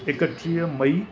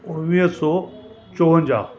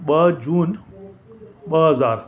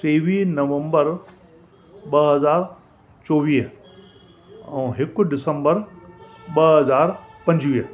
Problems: constant background noise